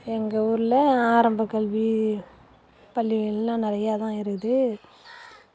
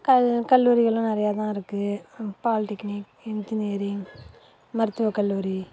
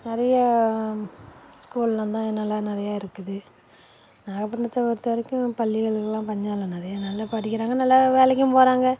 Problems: constant background noise